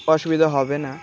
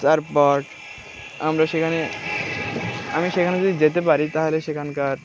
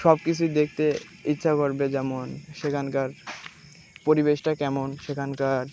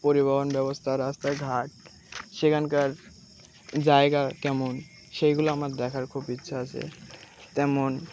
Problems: background sounds at intervals